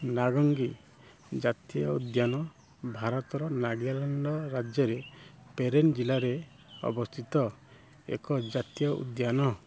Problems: low volume